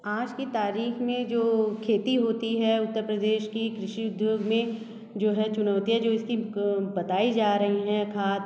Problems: constant background noise, echo